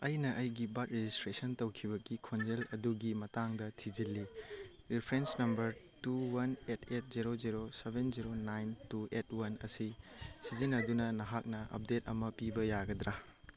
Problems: background conversations at intervals